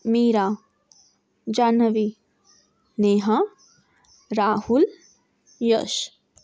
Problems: none marked